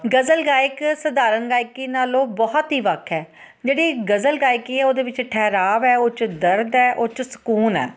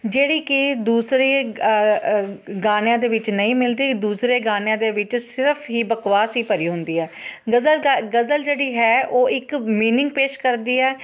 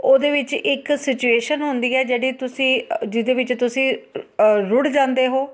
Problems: constant background noise